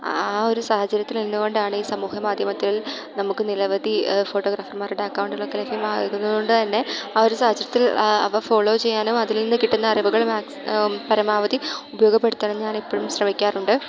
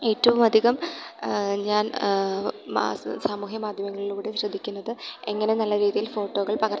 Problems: background sounds at intervals